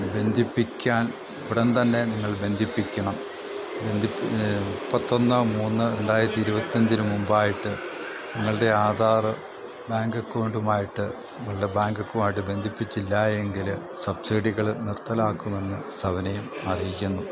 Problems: none marked